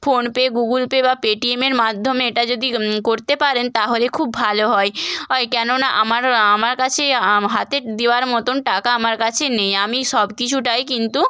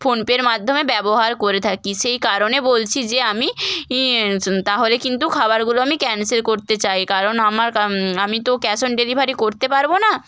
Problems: background sounds at intervals